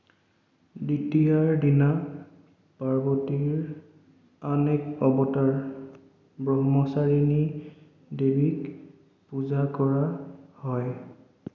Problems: echo